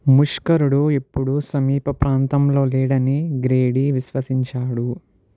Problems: none marked